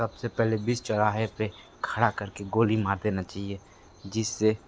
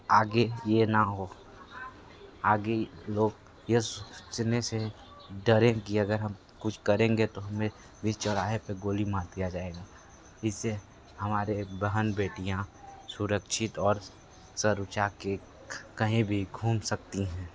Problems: constant background noise